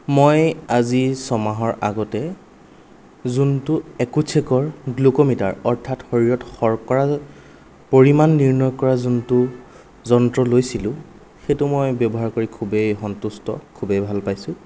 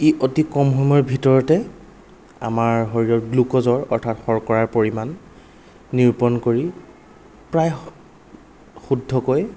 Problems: none marked